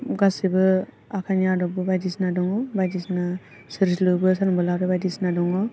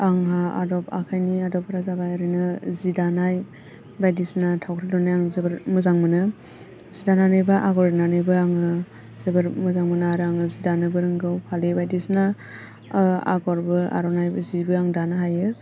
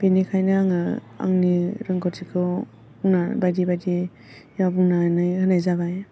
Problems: low volume